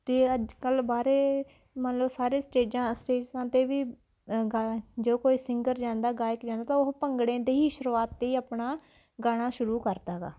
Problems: background sounds at intervals